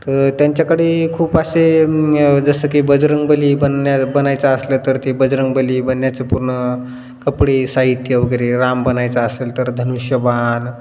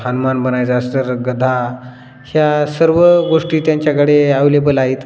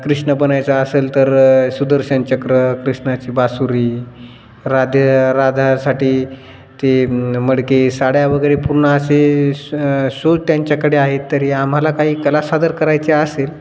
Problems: none marked